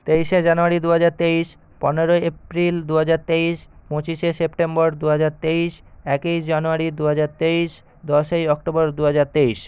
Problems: none marked